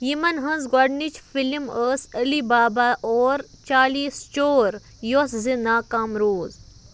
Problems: none marked